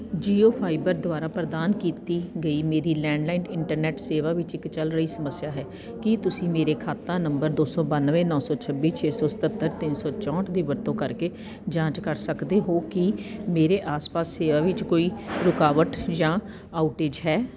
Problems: constant background noise, background conversations at intervals